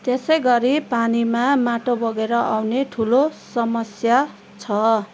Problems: constant background noise